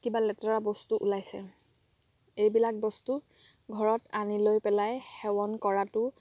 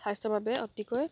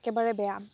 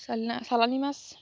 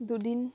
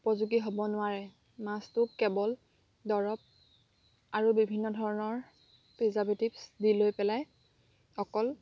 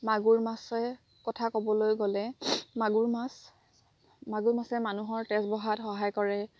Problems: background sounds at intervals